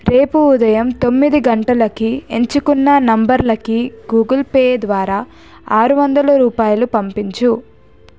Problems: none marked